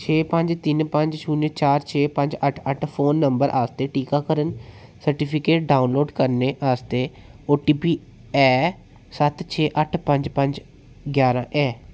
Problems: echo